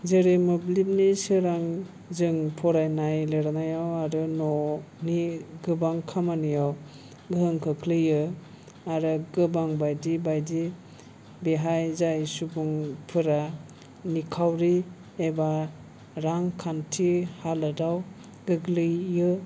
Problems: low volume